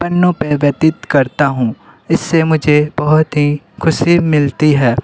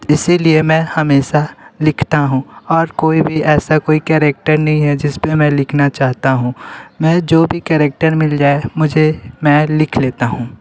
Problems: constant background noise, background conversations at intervals